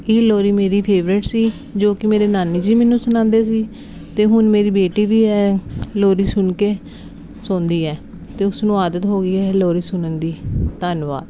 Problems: none marked